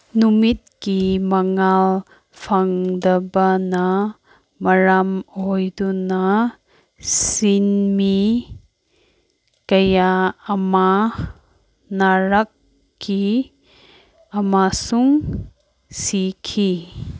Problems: none marked